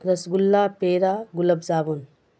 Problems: none marked